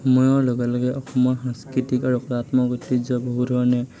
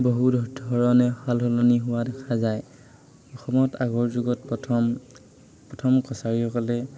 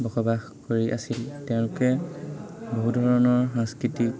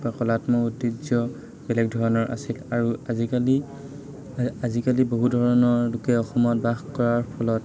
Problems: constant background noise, continuous background conversations